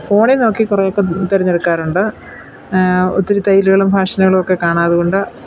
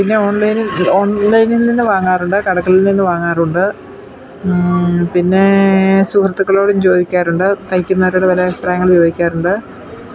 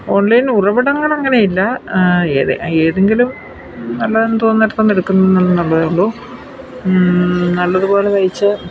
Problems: constant background noise